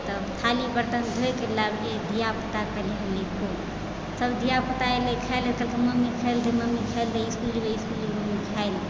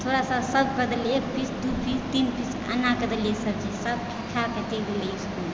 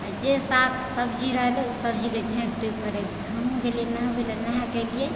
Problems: background sounds at intervals